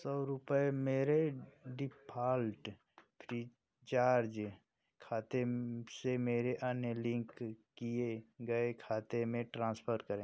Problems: constant background noise